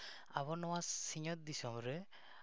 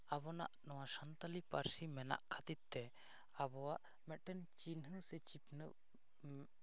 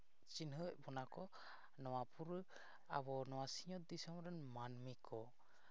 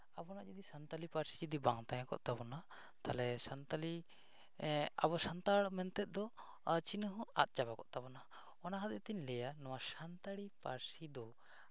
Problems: none marked